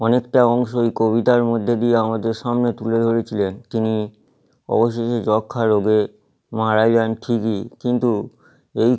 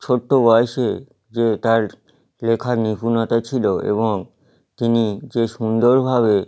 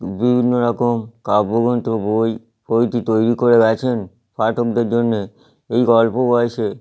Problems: background sounds at intervals